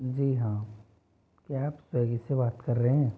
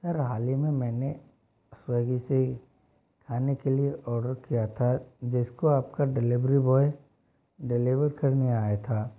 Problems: low volume